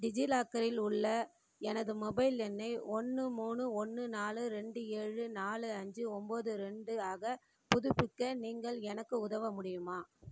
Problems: none marked